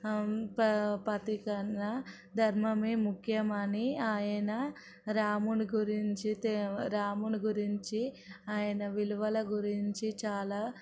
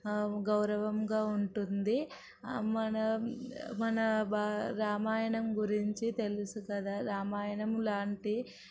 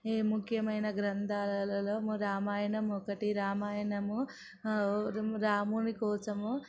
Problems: none marked